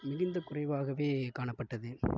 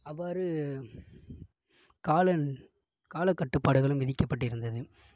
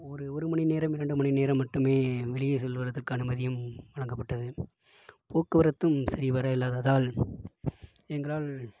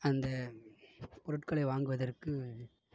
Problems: low volume